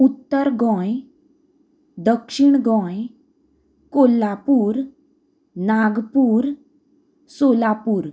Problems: constant background noise